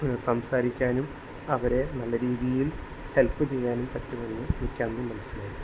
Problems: constant background noise